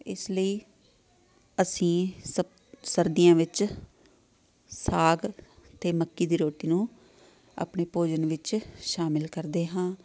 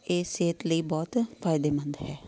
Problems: none marked